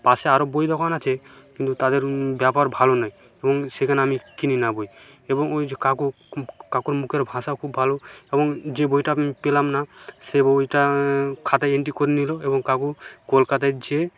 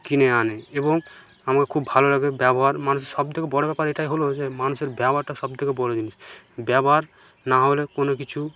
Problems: none marked